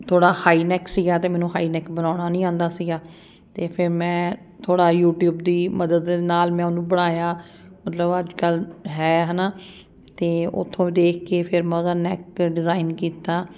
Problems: none marked